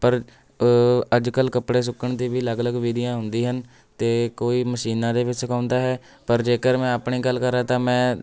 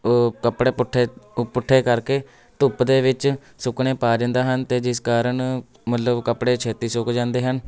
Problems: continuous background conversations